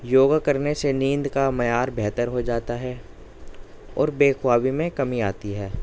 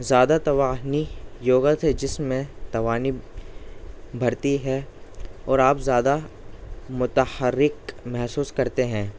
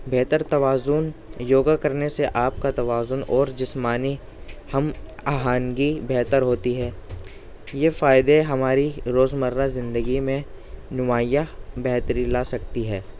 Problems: background sounds at intervals, background conversations at intervals